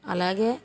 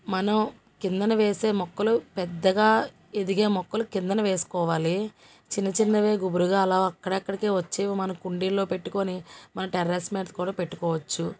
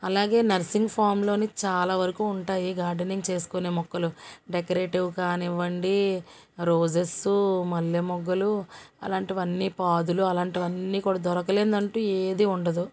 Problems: none marked